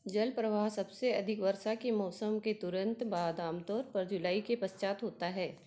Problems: background sounds at intervals